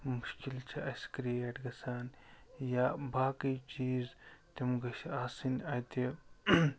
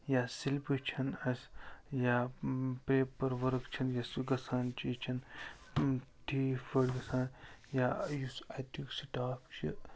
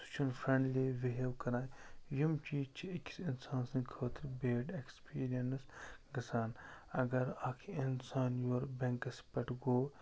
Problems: constant background noise, low volume